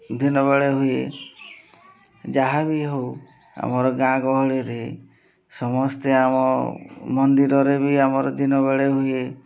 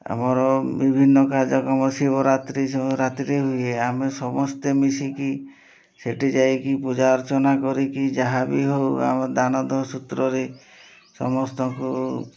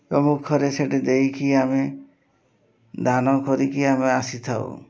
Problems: none marked